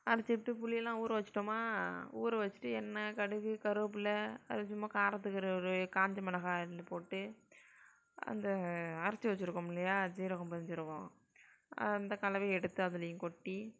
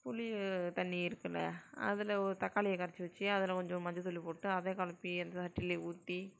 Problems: none marked